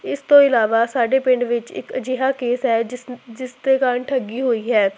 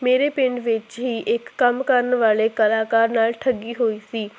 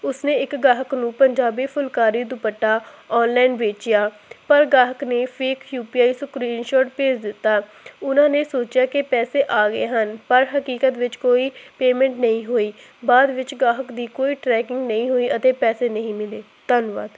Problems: constant background noise